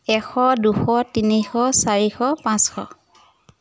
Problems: background sounds at intervals